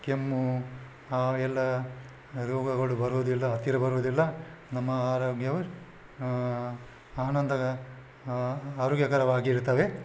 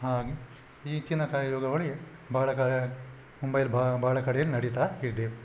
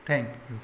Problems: none marked